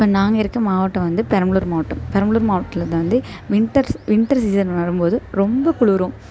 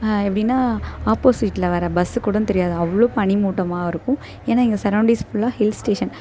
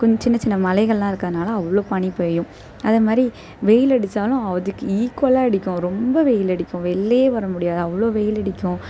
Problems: none marked